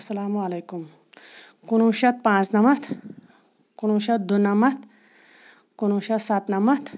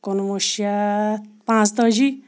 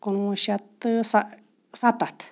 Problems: background sounds at intervals